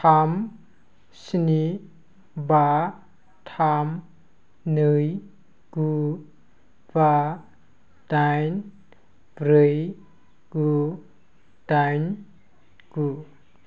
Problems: none marked